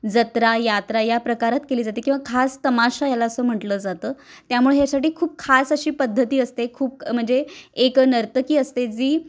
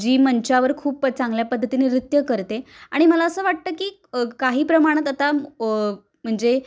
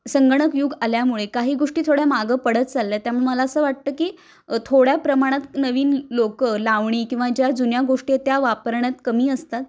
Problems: none marked